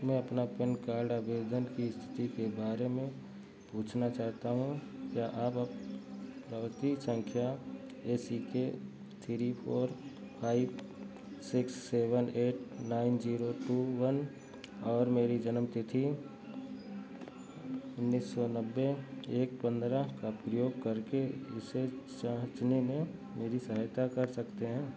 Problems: constant background noise, background conversations at intervals